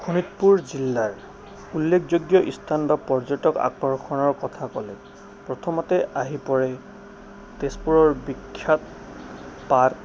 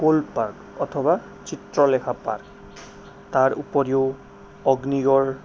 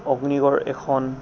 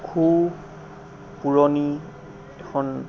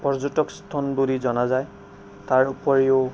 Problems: none marked